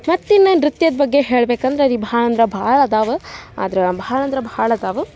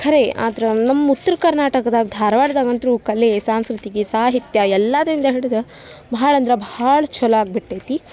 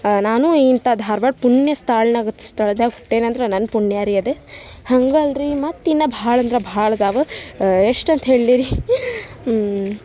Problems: background sounds at intervals